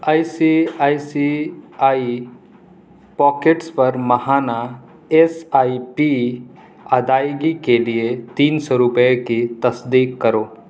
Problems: none marked